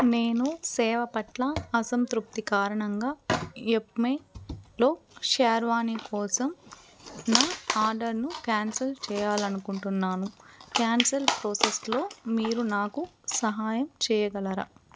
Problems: background sounds at intervals